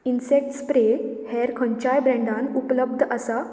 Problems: background sounds at intervals